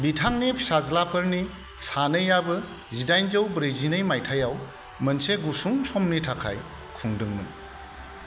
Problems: none marked